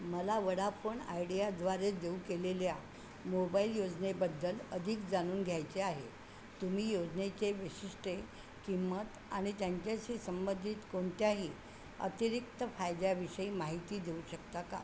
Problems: constant background noise